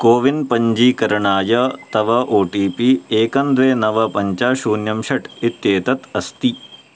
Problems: none marked